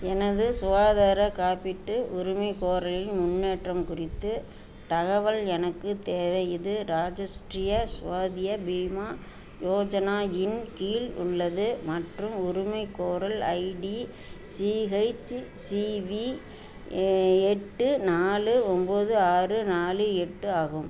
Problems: none marked